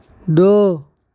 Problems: constant background noise, low volume